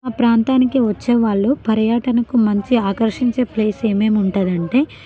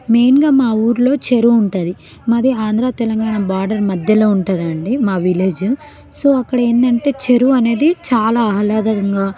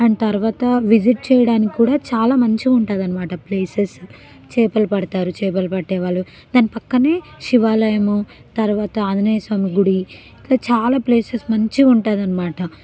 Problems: background conversations at intervals